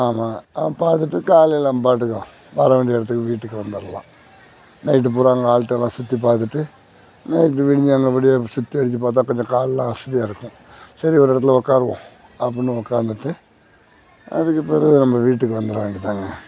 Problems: none marked